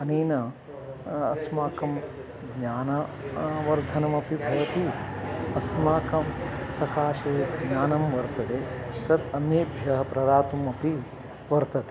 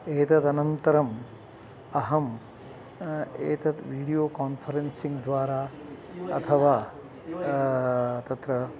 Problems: background sounds at intervals